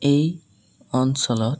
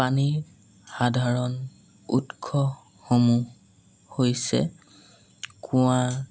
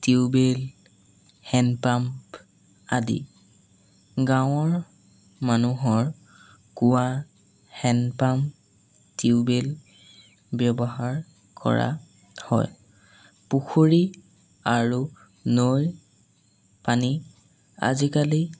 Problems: background sounds at intervals